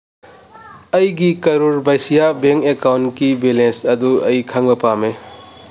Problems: none marked